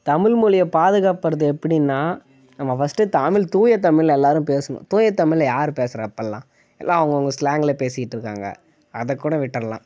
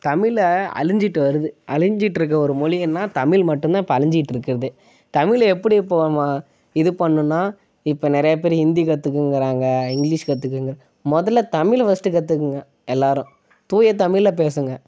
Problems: none marked